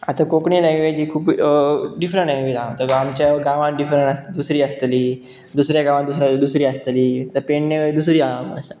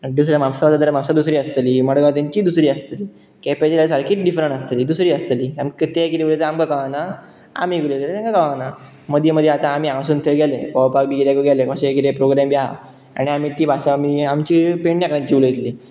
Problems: constant background noise